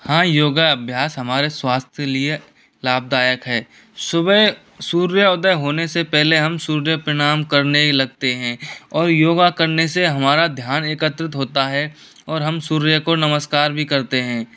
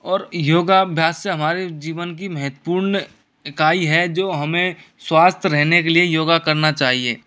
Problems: constant background noise